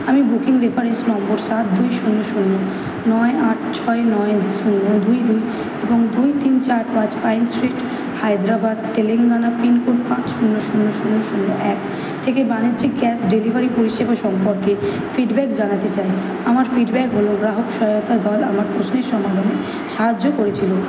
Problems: constant background noise